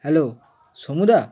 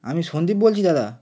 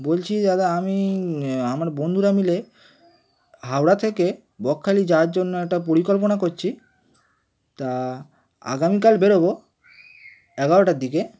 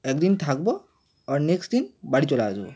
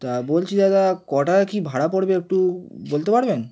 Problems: constant background noise, background conversations at intervals